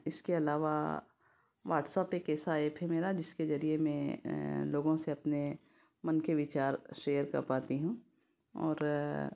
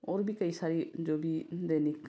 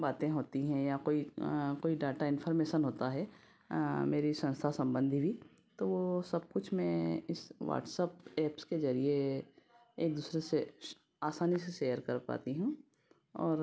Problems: none marked